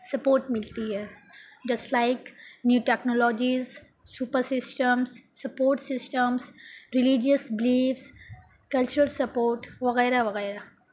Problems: none marked